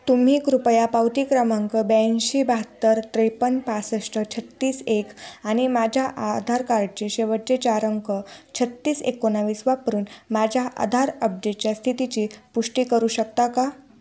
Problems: constant background noise, background conversations at intervals